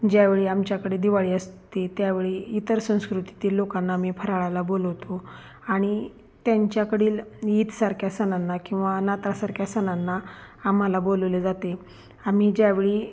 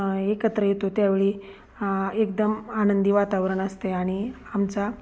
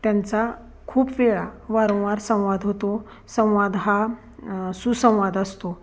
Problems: constant background noise